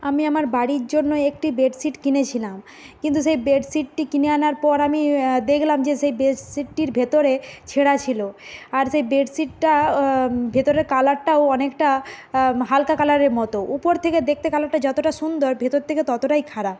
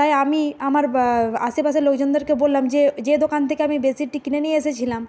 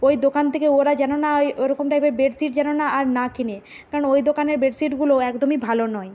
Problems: constant background noise